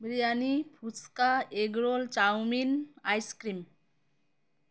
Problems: constant background noise